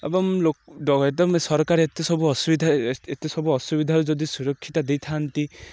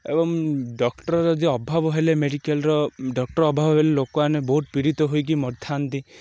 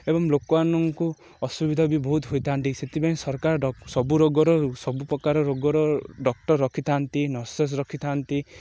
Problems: none marked